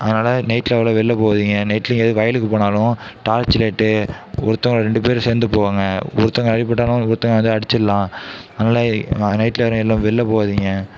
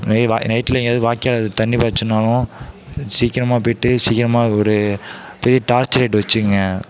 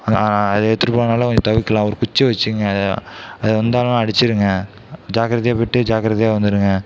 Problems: none marked